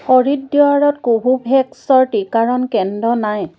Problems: none marked